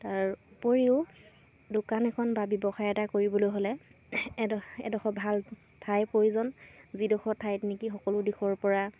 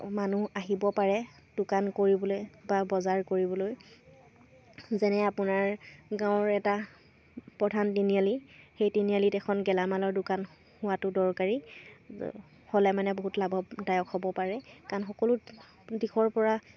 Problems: none marked